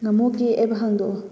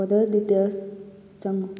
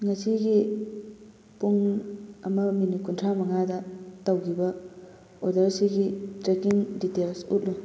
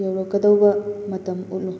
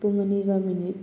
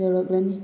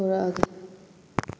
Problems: constant background noise